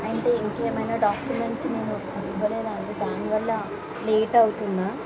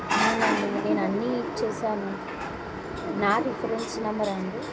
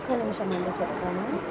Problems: constant background noise